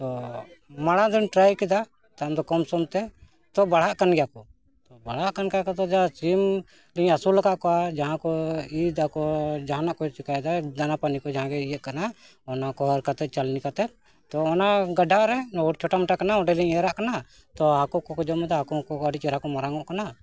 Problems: continuous background conversations